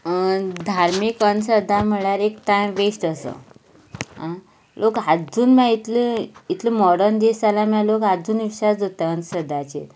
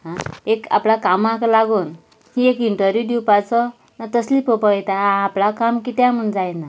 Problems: background sounds at intervals